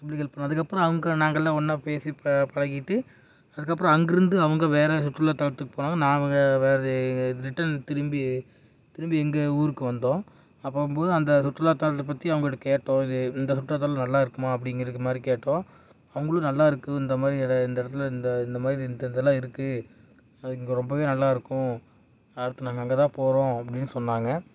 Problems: none marked